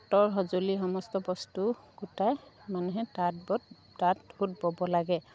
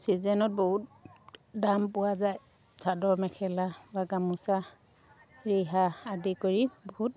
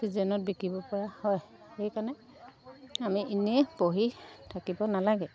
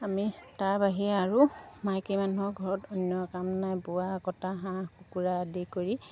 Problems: none marked